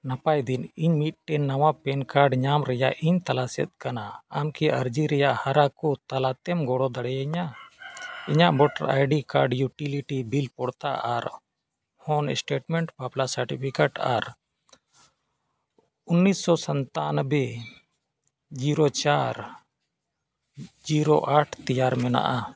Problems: background sounds at intervals